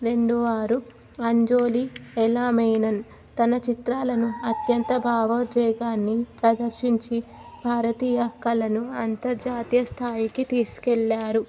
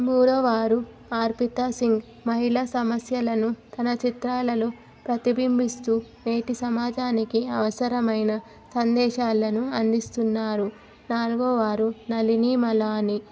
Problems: none marked